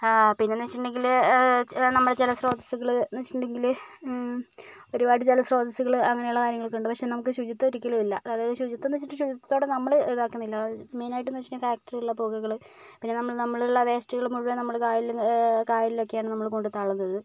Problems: none marked